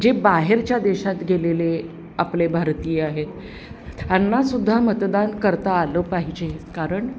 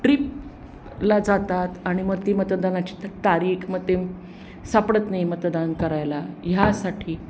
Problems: constant background noise